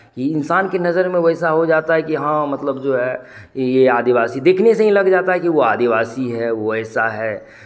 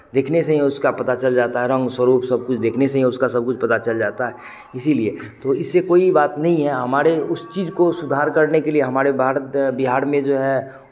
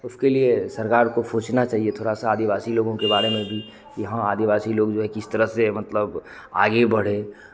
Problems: constant background noise, background conversations at intervals